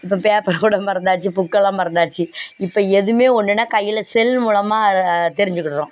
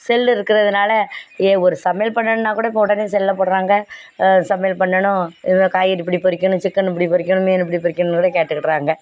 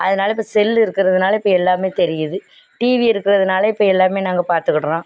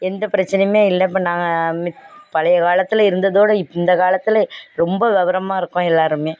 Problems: none marked